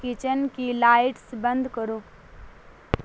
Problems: constant background noise